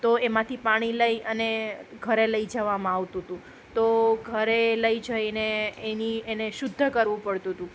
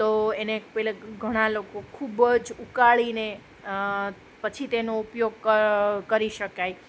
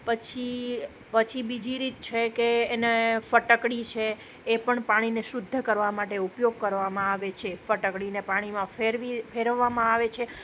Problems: none marked